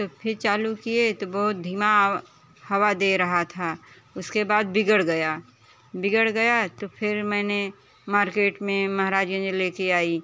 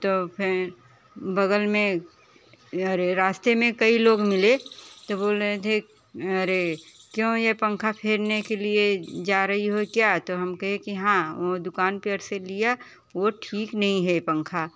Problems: none marked